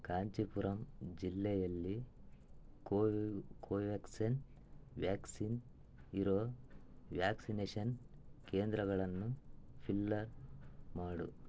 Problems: low volume